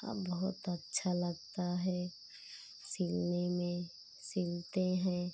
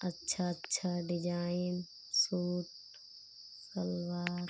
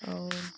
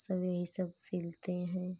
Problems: none marked